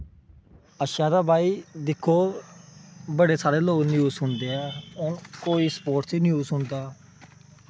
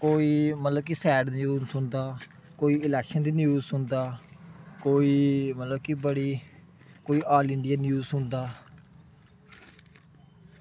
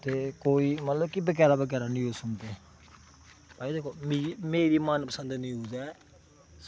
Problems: background sounds at intervals